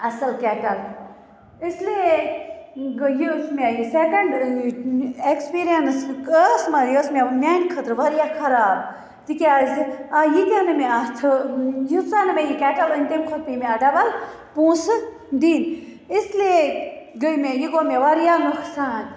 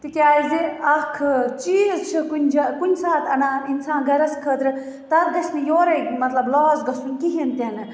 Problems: none marked